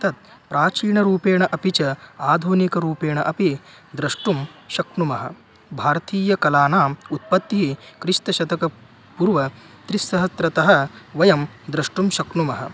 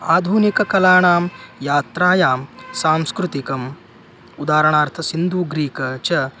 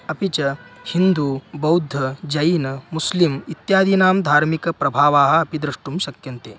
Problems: constant background noise